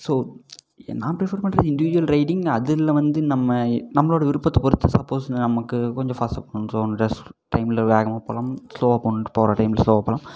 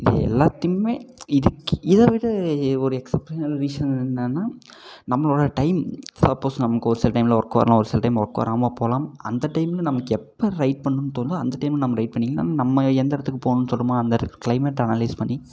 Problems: echo